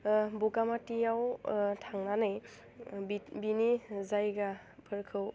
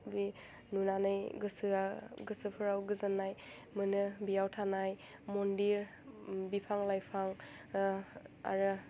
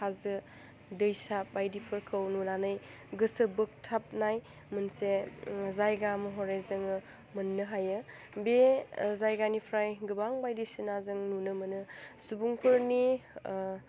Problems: low volume